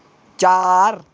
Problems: none marked